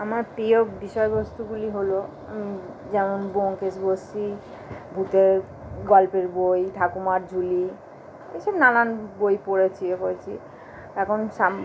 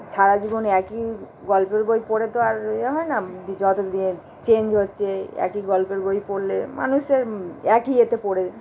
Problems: constant background noise